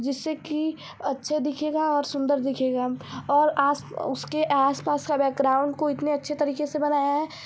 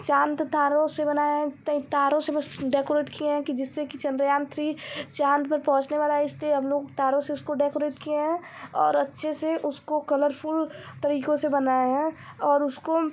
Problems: none marked